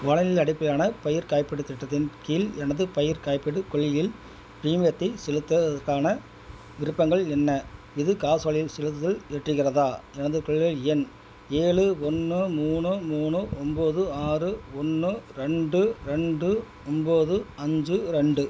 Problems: background sounds at intervals